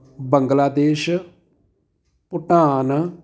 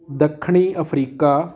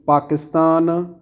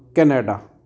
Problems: none marked